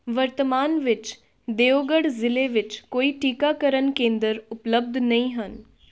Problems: none marked